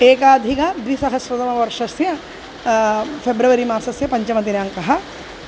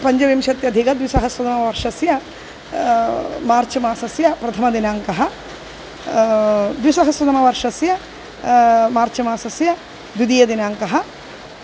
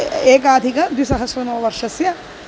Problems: constant background noise